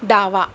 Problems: constant background noise